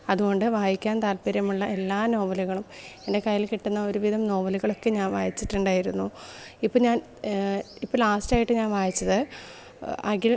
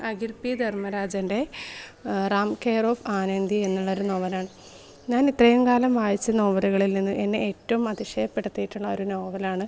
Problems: background sounds at intervals